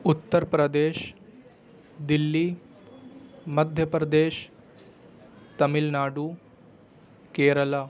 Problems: constant background noise